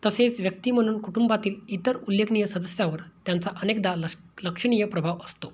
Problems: none marked